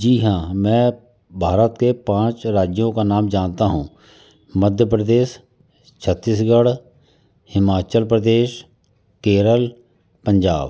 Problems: constant background noise